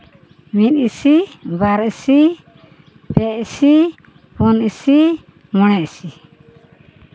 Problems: background sounds at intervals